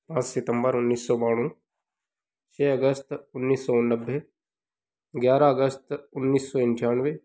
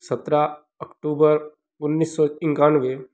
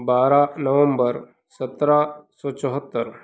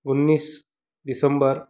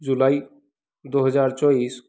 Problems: background sounds at intervals